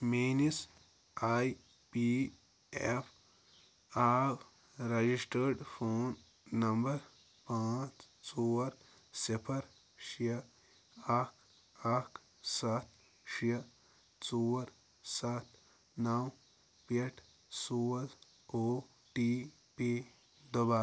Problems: none marked